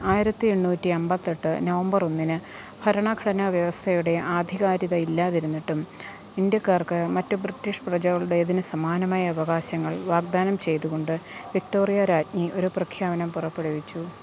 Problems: constant background noise